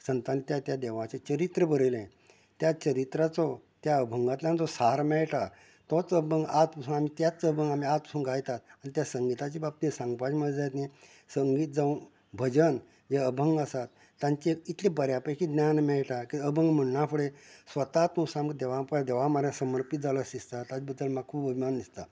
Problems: background conversations at intervals, low volume